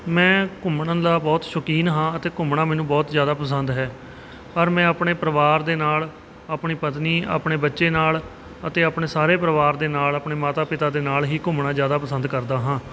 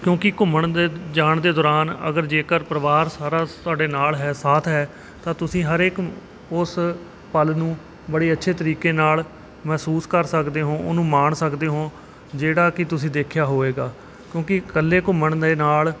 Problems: none marked